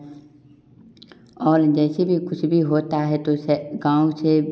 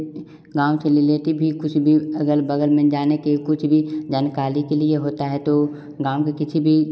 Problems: background sounds at intervals, echo